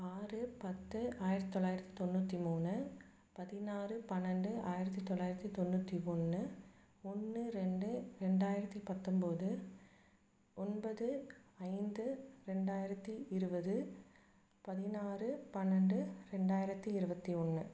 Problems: low volume